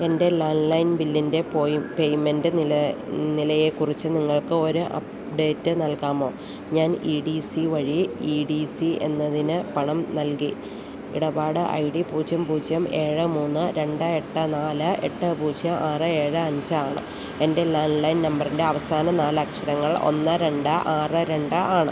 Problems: constant background noise